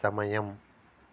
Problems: constant background noise